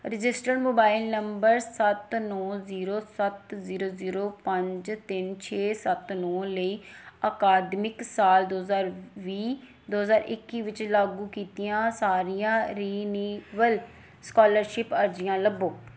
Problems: background sounds at intervals